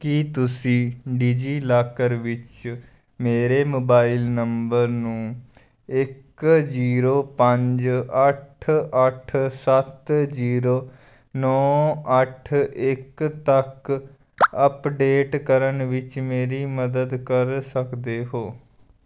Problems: background sounds at intervals